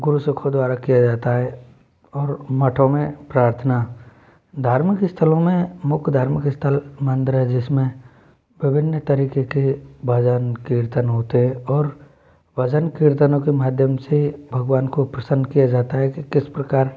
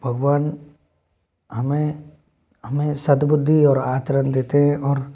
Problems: constant background noise